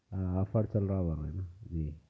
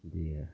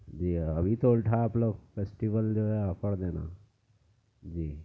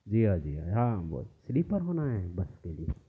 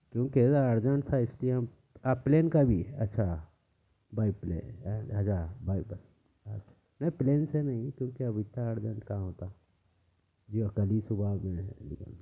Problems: background sounds at intervals, low volume